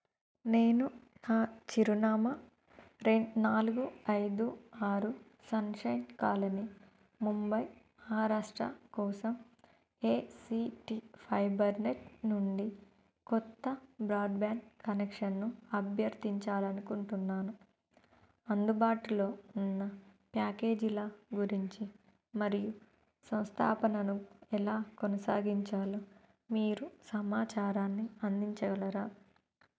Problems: low volume